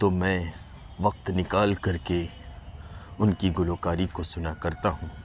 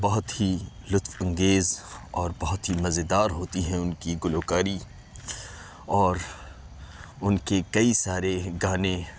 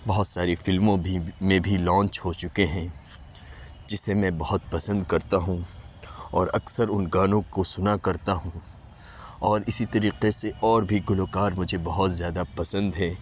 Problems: constant background noise